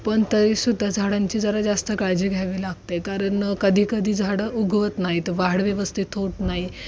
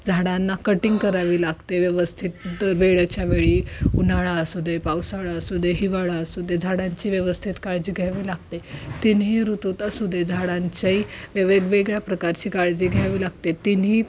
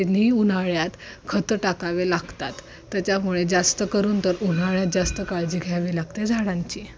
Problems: none marked